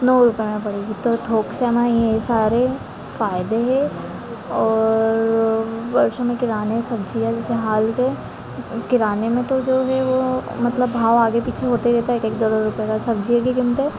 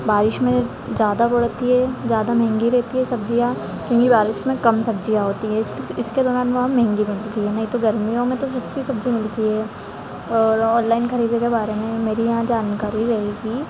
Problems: constant background noise, continuous background conversations